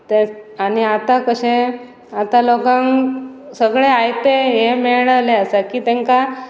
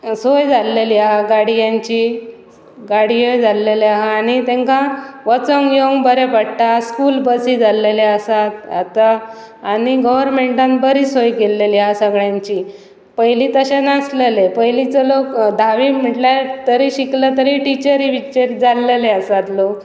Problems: constant background noise